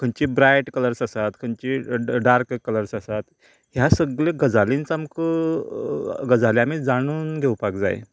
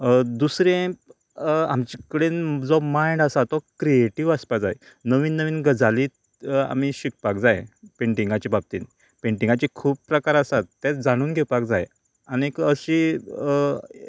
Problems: continuous background conversations